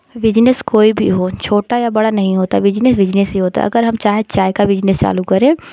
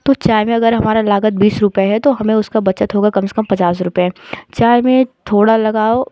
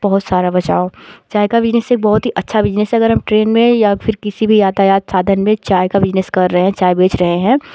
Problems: constant background noise